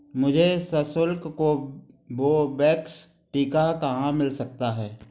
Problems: background sounds at intervals